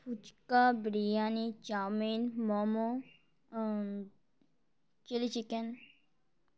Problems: background sounds at intervals